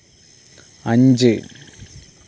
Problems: none marked